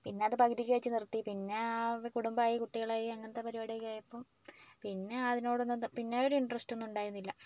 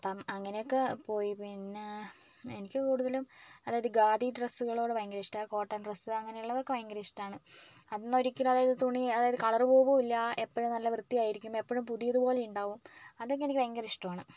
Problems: low volume